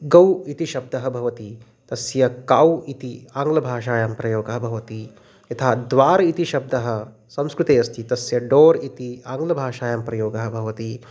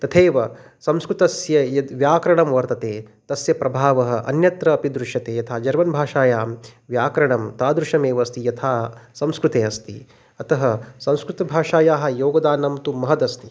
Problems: none marked